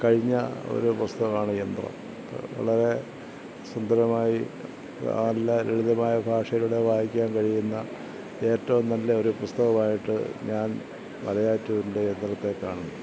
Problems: none marked